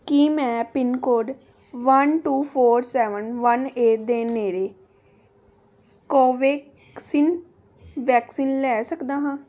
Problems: none marked